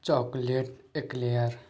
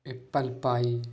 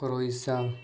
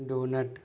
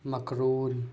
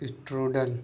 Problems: constant background noise